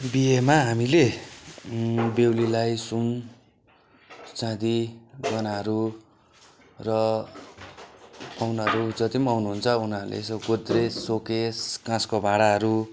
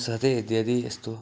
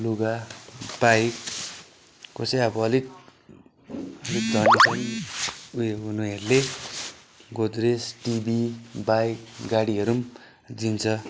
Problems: background sounds at intervals